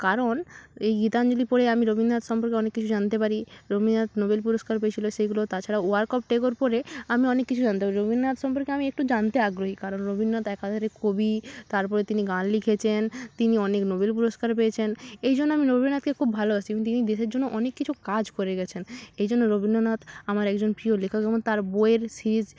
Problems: none marked